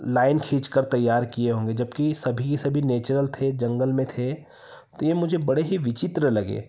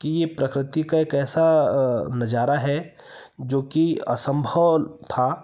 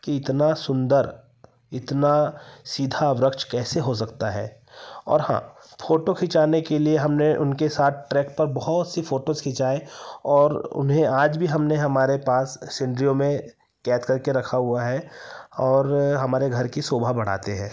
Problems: none marked